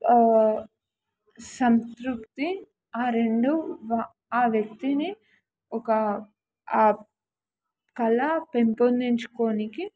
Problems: none marked